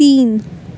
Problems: none marked